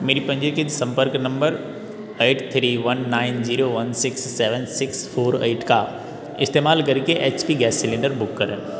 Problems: background sounds at intervals